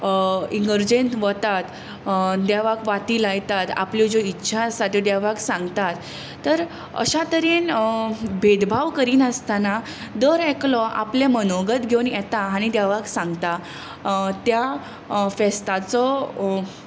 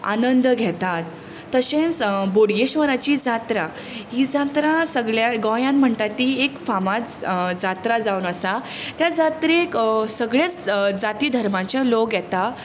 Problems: none marked